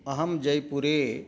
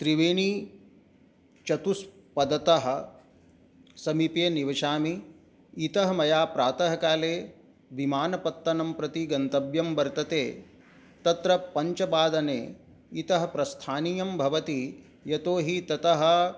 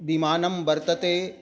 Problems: none marked